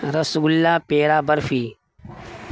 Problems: constant background noise